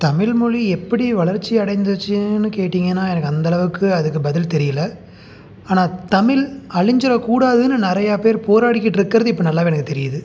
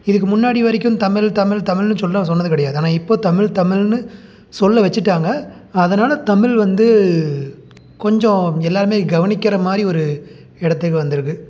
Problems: none marked